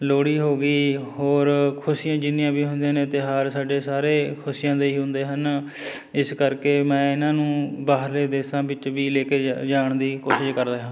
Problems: constant background noise